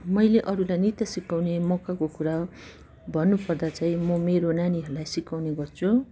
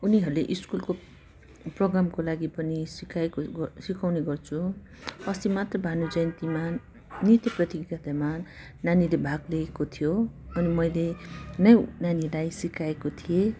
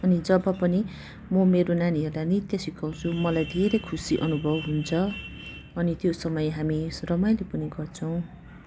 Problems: constant background noise